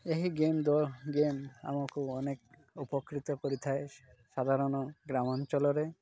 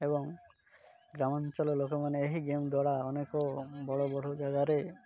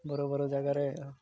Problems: constant background noise